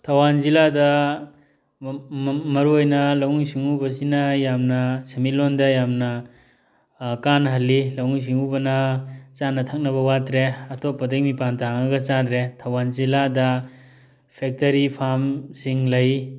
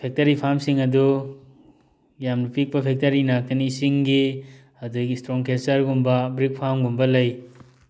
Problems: background sounds at intervals